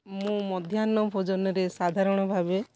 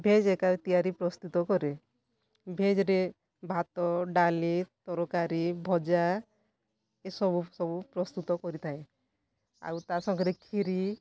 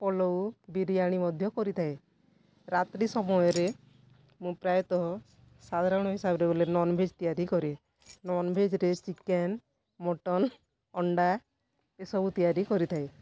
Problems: none marked